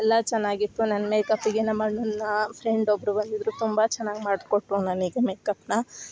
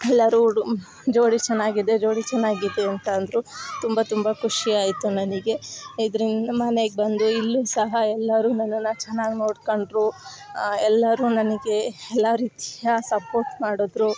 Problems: background sounds at intervals